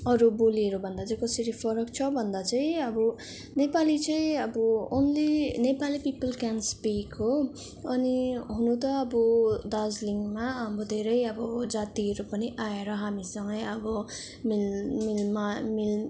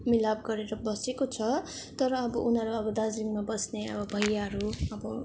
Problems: background sounds at intervals, background conversations at intervals